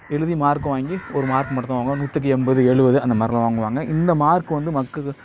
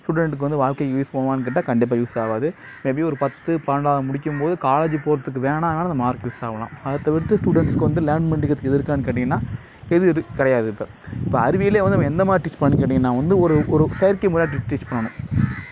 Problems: background sounds at intervals